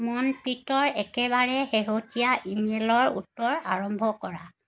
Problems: background sounds at intervals